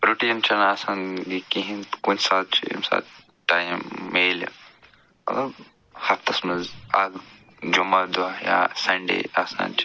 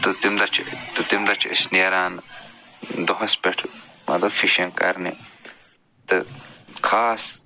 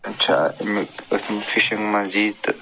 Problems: background sounds at intervals